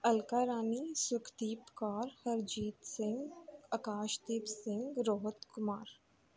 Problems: background sounds at intervals